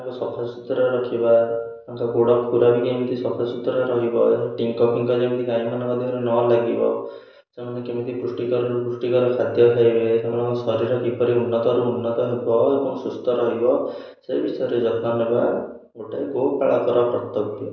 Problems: echo